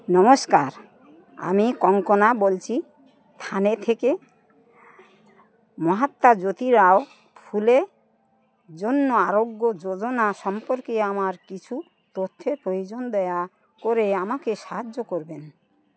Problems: constant background noise, continuous background conversations